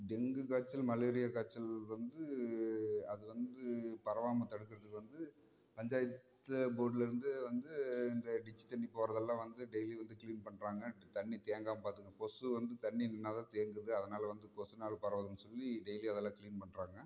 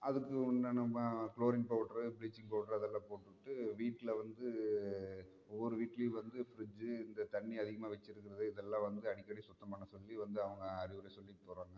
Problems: low volume